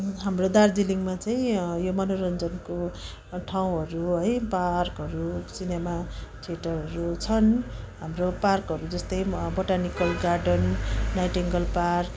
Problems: continuous background conversations